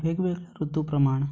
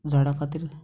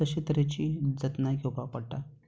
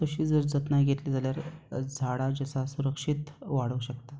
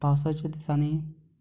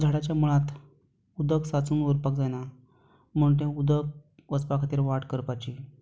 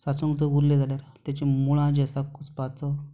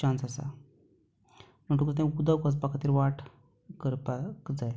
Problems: background sounds at intervals